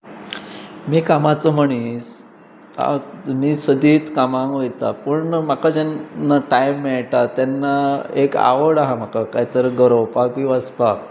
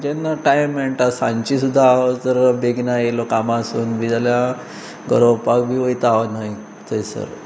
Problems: constant background noise